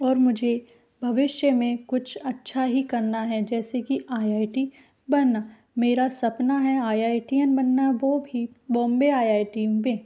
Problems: none marked